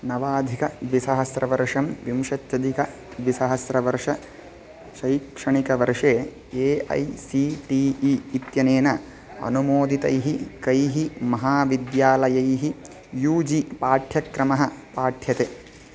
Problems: constant background noise